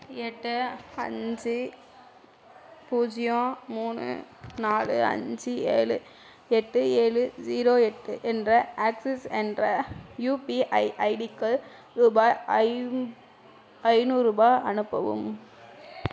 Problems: background conversations at intervals